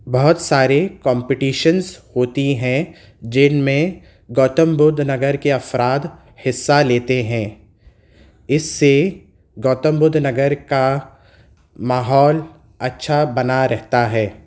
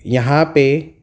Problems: none marked